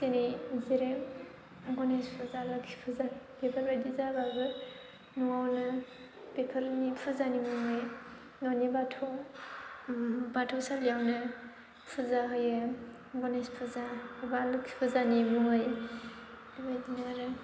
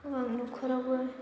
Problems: constant background noise